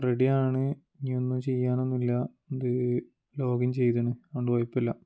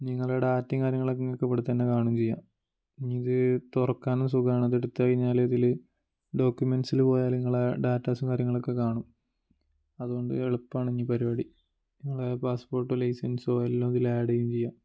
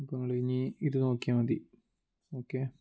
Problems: low volume